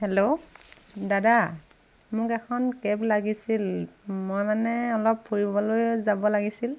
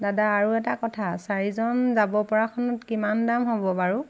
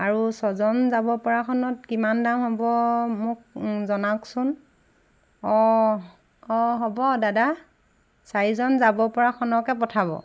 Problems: background sounds at intervals